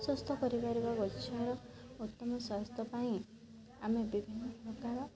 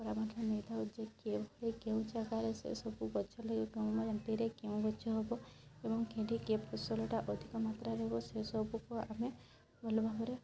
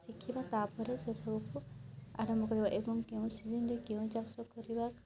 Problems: constant background noise, continuous background conversations